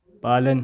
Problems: none marked